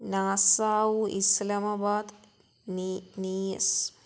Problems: none marked